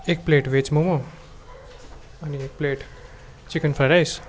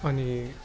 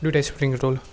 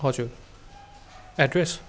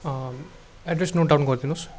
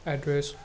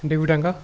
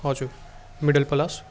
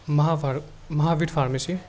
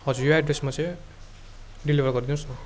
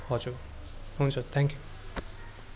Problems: constant background noise